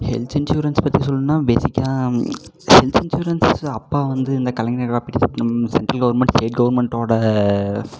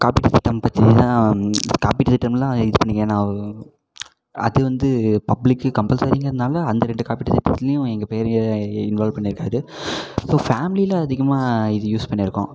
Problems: constant background noise